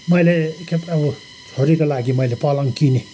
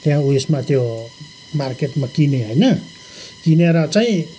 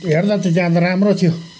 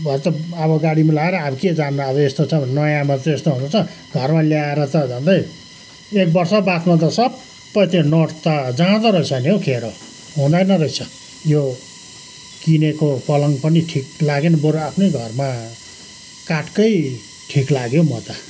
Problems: constant background noise